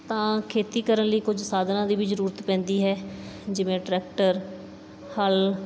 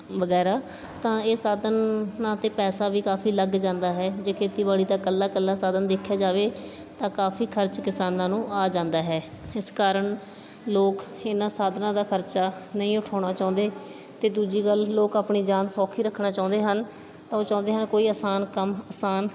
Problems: background sounds at intervals, background conversations at intervals